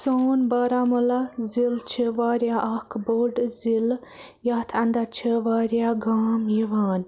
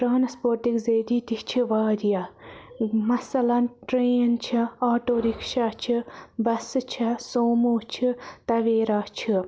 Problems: constant background noise